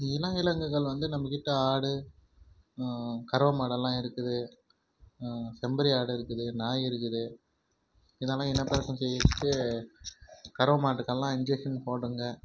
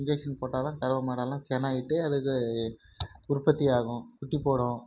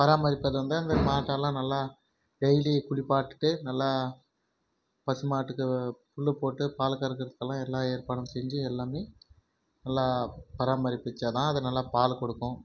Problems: background sounds at intervals